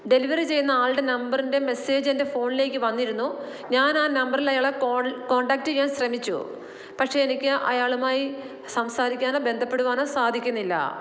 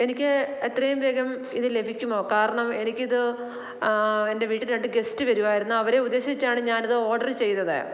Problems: constant background noise